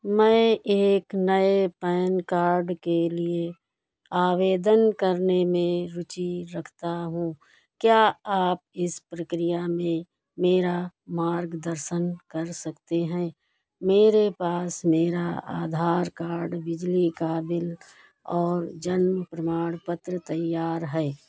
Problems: none marked